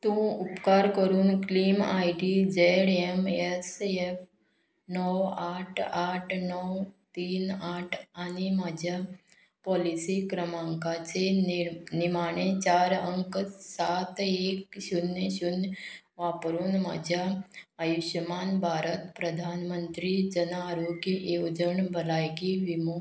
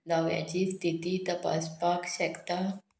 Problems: none marked